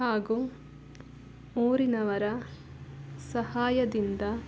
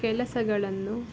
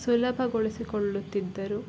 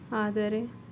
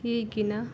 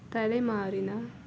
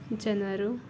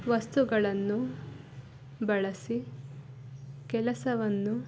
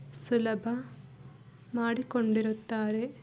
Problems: background sounds at intervals